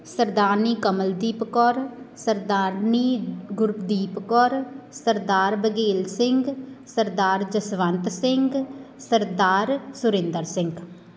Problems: none marked